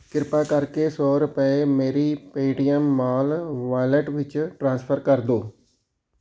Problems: background sounds at intervals